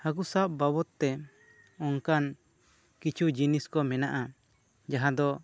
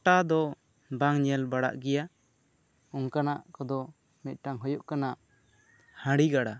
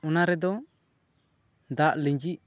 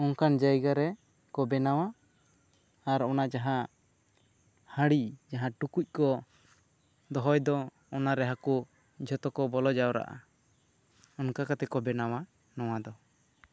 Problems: none marked